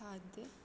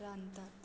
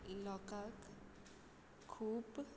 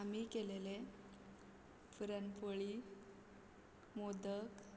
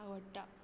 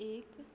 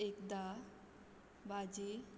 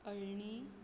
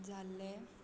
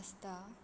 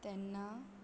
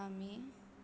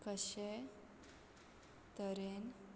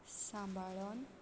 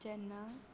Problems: constant background noise